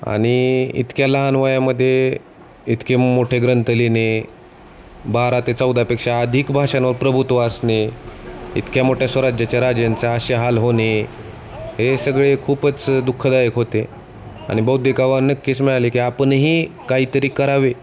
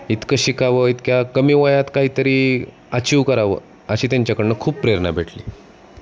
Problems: constant background noise, continuous background conversations